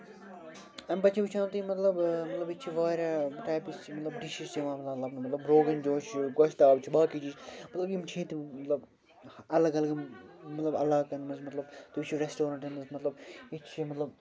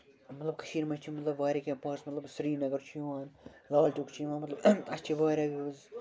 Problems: constant background noise